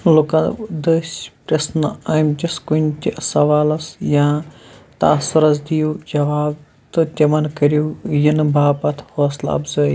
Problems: none marked